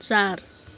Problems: constant background noise